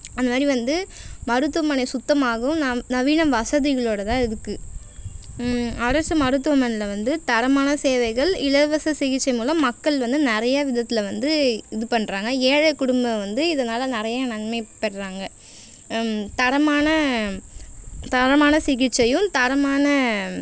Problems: constant background noise